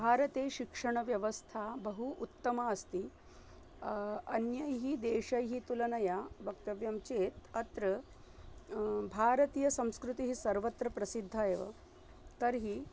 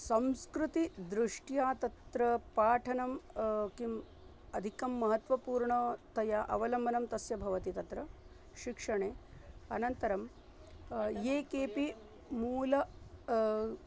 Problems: none marked